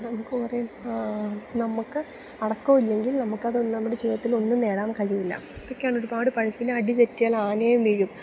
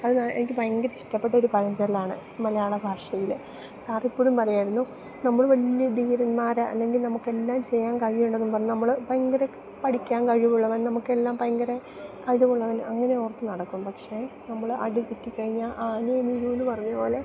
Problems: none marked